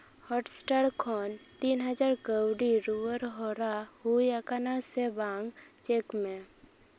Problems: none marked